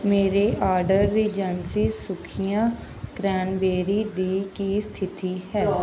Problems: background conversations at intervals